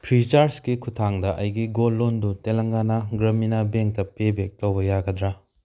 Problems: none marked